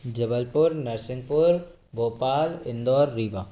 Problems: background sounds at intervals